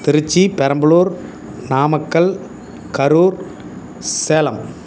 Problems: constant background noise